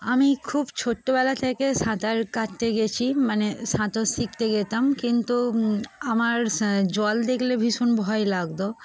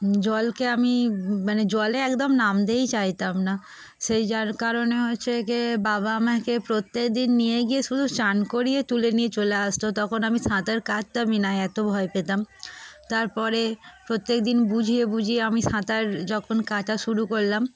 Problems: constant background noise